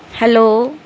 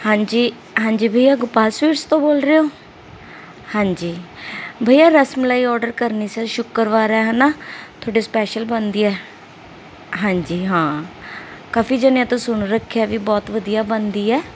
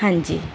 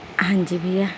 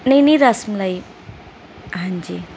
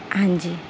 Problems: background sounds at intervals